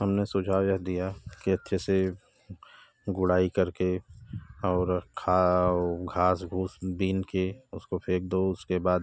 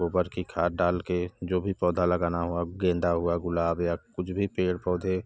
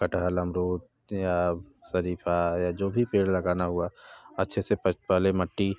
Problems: constant background noise